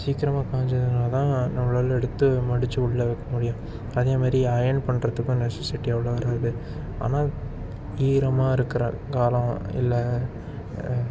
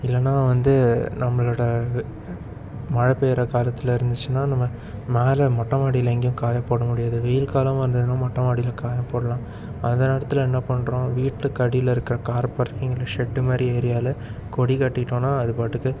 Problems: constant background noise